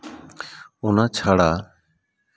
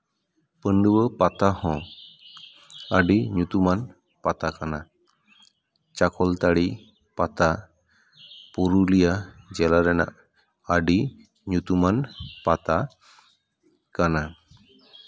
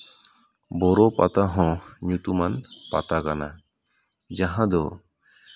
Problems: background conversations at intervals